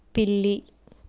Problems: constant background noise